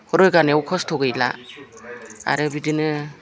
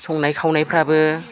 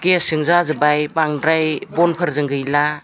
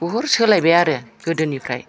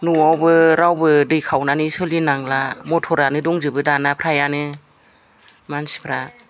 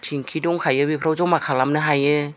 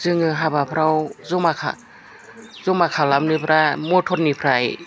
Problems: background conversations at intervals